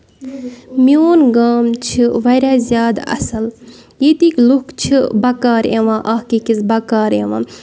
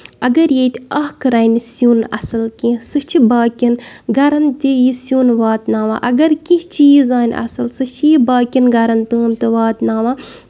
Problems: background sounds at intervals